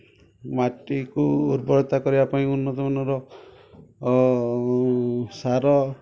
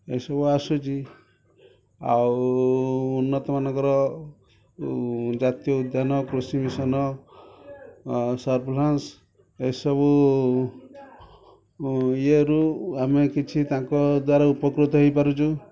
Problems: none marked